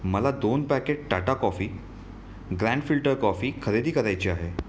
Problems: background sounds at intervals